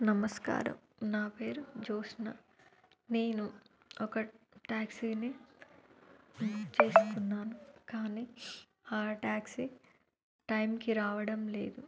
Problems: none marked